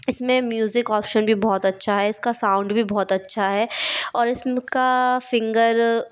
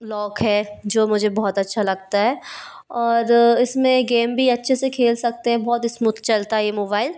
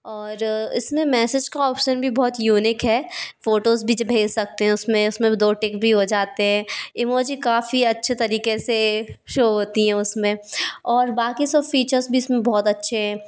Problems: none marked